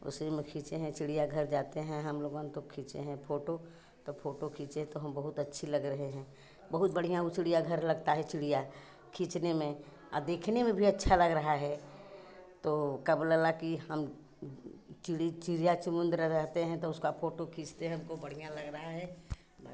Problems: background sounds at intervals